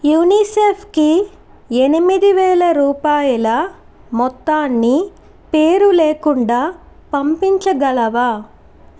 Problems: constant background noise